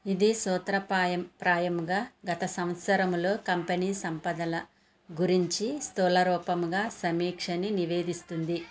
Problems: background conversations at intervals